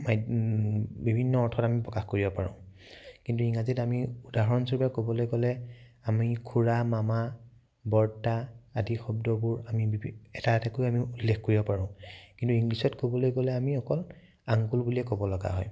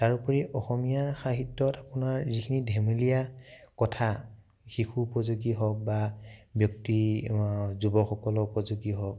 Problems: none marked